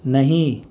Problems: none marked